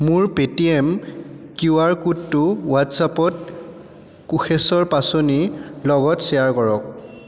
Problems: background sounds at intervals, echo